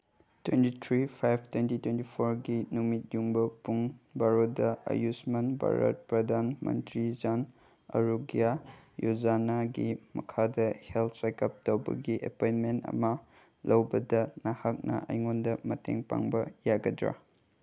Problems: background sounds at intervals